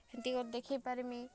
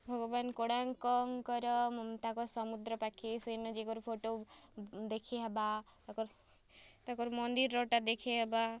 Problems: none marked